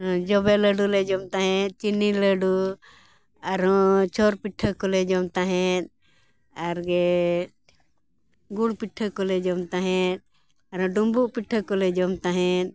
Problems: background sounds at intervals